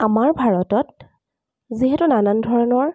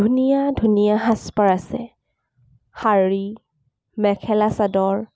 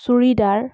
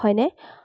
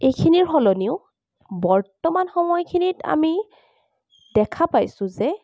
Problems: none marked